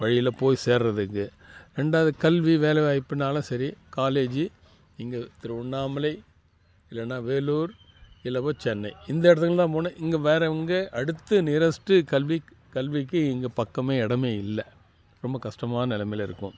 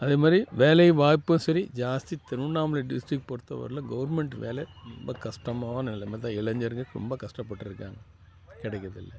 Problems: constant background noise